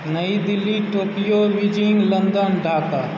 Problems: constant background noise